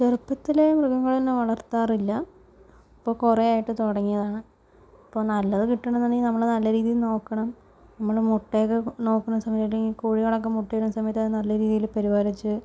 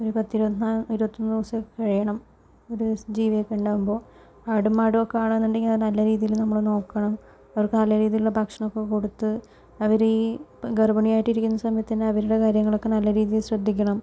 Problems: low volume